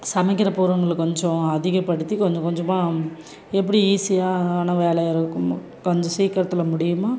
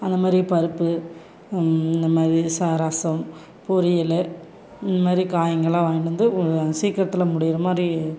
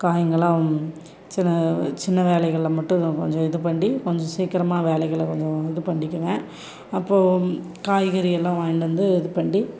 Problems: continuous background conversations